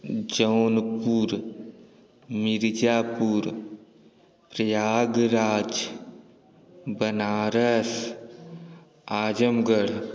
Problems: none marked